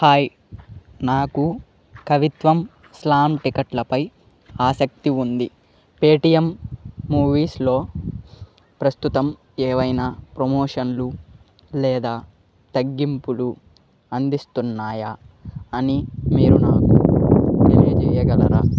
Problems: background sounds at intervals